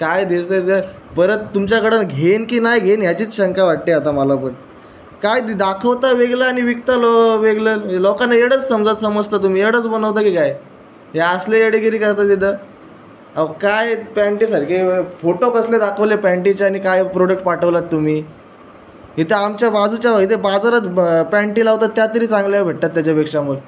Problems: none marked